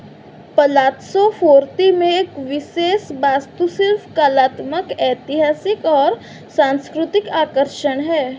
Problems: none marked